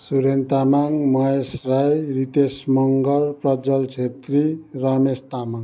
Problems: continuous background conversations